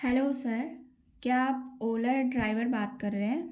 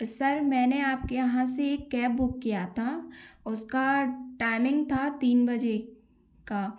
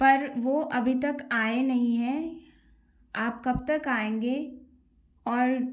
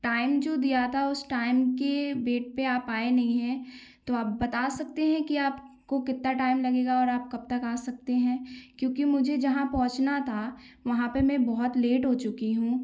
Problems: constant background noise